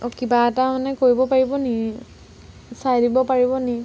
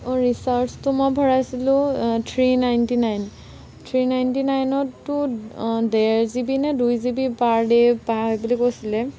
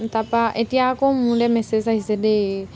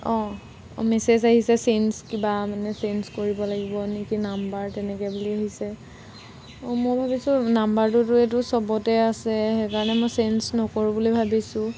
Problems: none marked